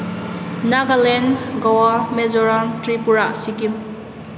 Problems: background sounds at intervals